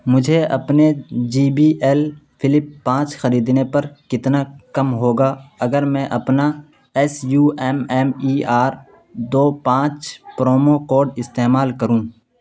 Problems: constant background noise